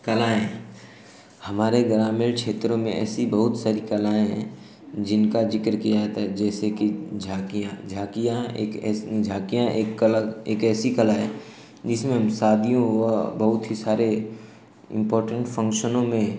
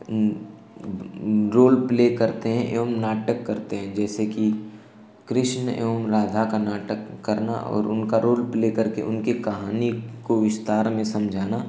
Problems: constant background noise, echo